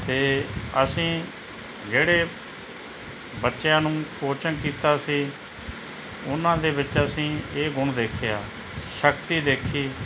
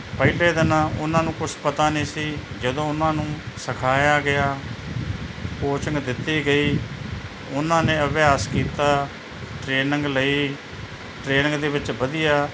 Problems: background sounds at intervals